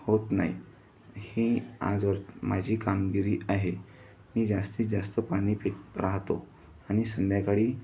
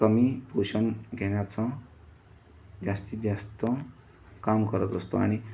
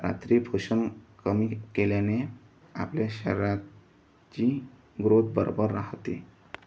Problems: constant background noise